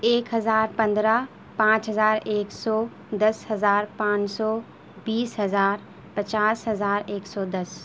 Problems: constant background noise